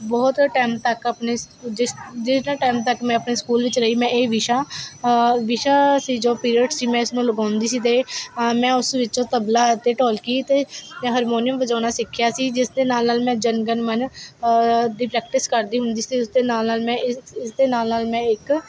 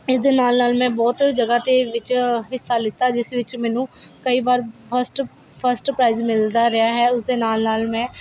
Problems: constant background noise